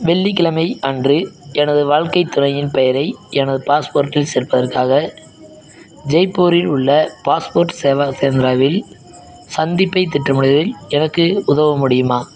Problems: background sounds at intervals